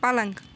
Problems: none marked